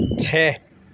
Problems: background sounds at intervals